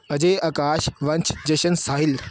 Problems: none marked